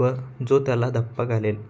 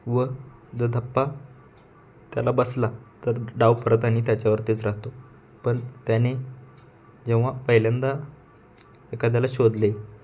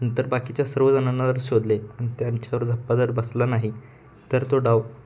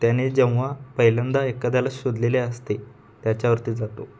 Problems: none marked